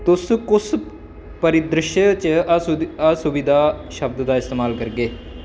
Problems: constant background noise